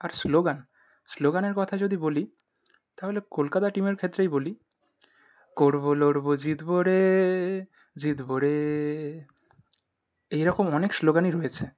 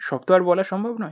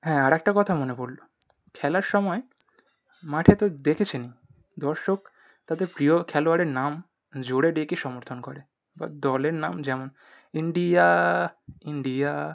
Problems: none marked